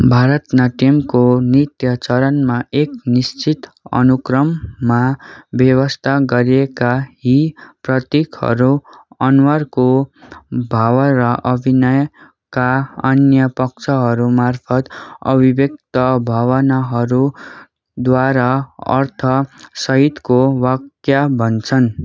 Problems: background sounds at intervals